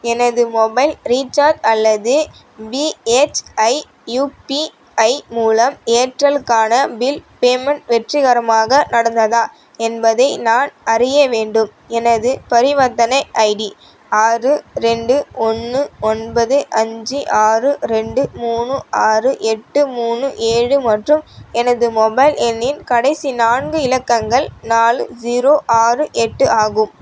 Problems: none marked